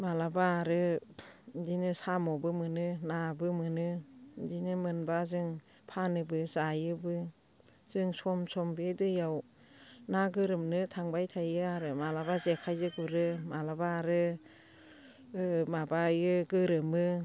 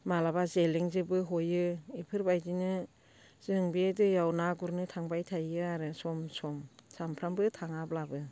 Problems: constant background noise